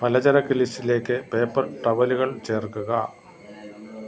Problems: constant background noise